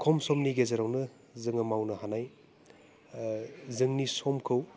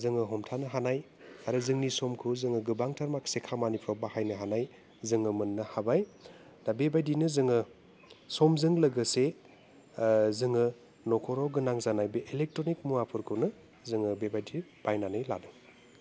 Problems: constant background noise